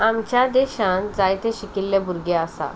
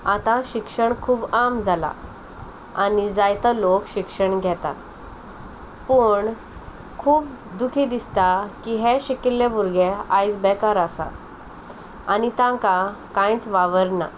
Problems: none marked